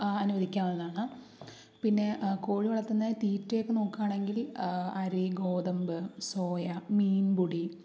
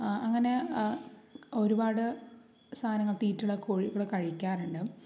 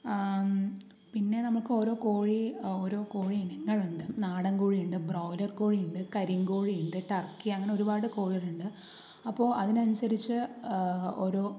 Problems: low volume